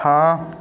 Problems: background sounds at intervals